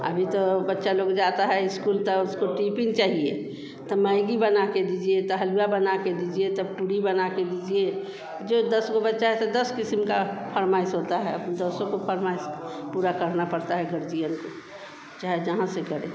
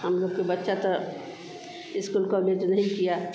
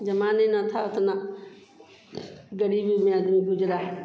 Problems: constant background noise